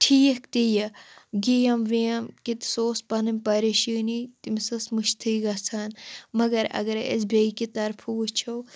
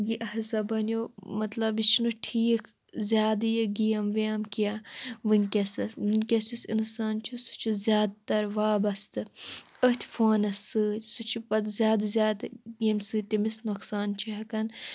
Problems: none marked